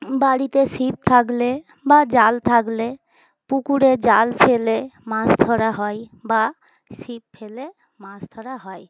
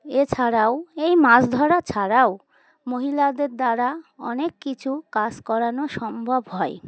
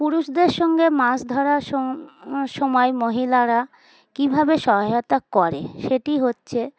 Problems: constant background noise, background conversations at intervals